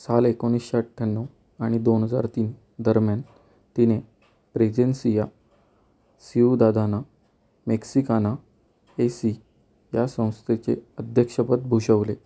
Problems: none marked